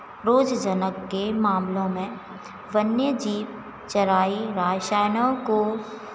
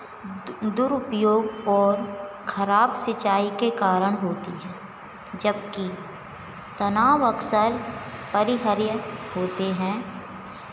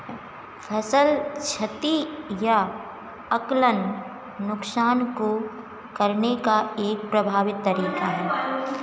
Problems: background sounds at intervals